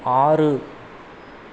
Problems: constant background noise